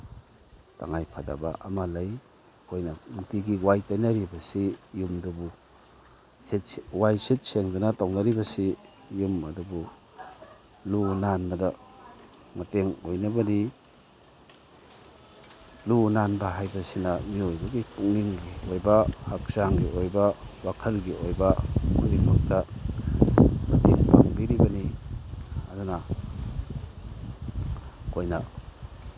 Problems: none marked